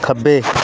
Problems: none marked